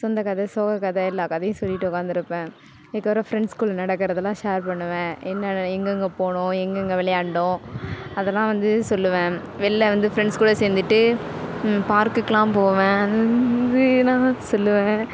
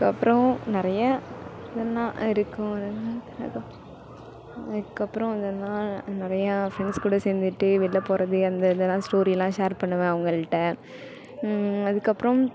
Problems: background sounds at intervals